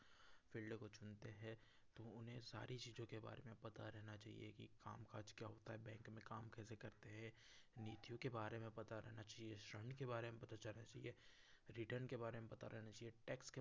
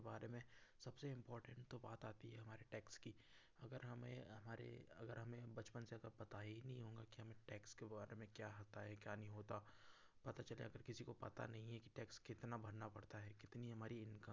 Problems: background sounds at intervals